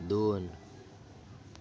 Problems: continuous background conversations